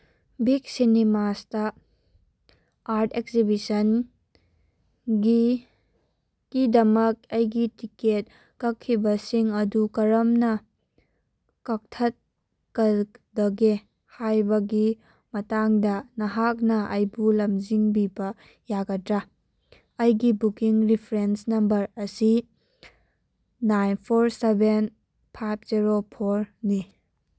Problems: background sounds at intervals